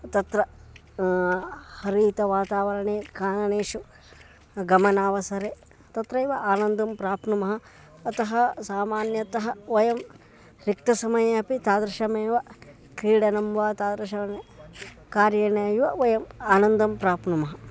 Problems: none marked